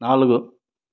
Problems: constant background noise